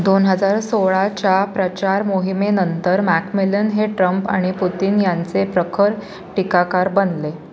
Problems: none marked